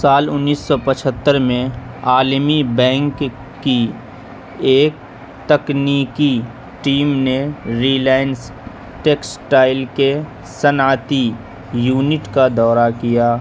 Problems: constant background noise, background conversations at intervals